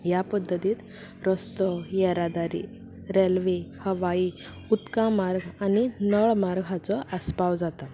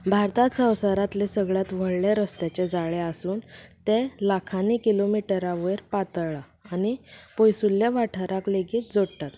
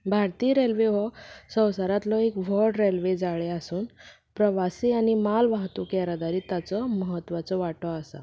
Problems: none marked